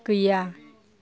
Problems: background conversations at intervals